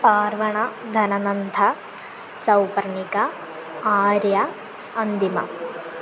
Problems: constant background noise